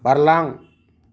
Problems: none marked